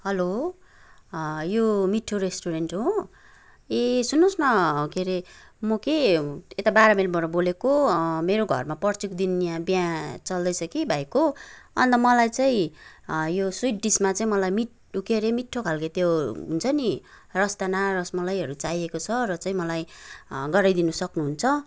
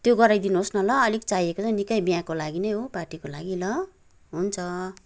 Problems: background sounds at intervals